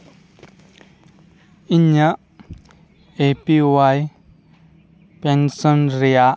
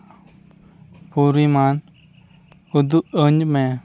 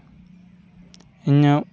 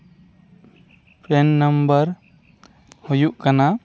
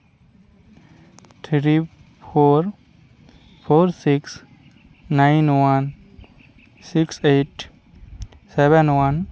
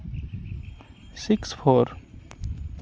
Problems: background sounds at intervals